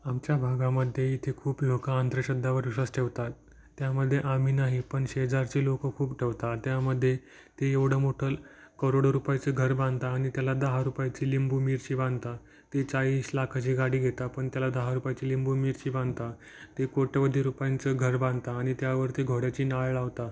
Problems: none marked